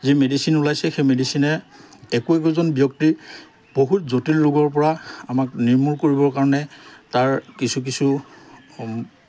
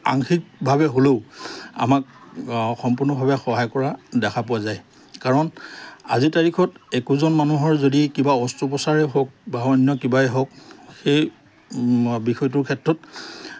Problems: background conversations at intervals